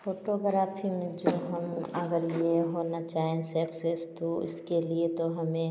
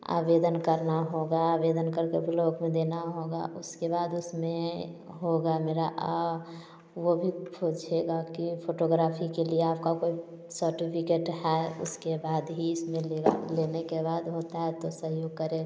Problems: none marked